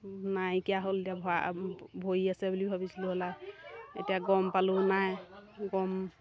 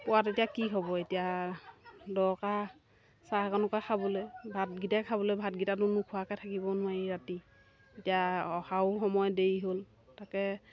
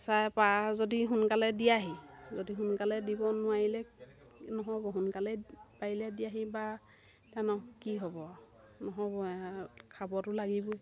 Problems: background sounds at intervals